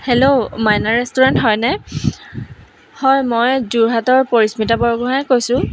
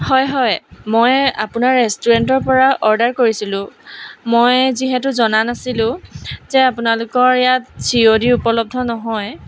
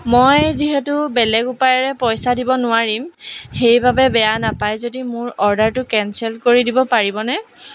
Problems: none marked